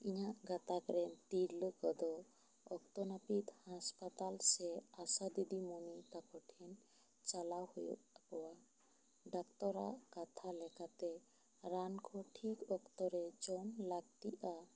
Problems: low volume